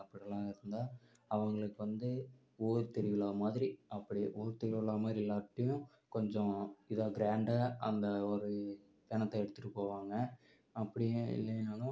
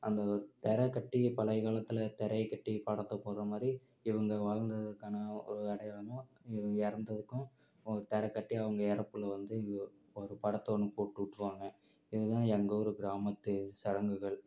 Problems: low volume